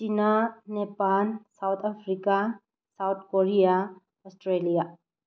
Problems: low volume